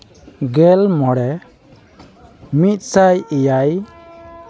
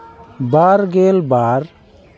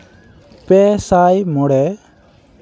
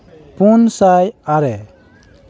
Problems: constant background noise, background conversations at intervals